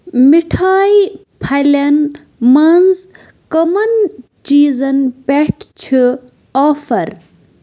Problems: constant background noise